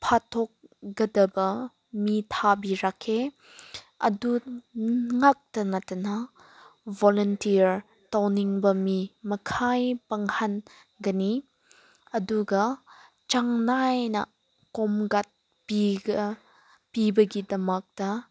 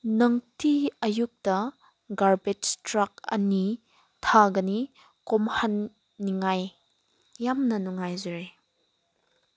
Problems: background sounds at intervals